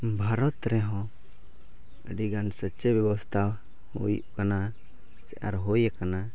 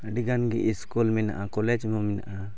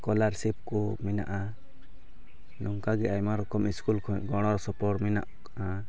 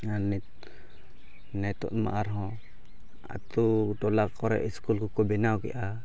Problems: background sounds at intervals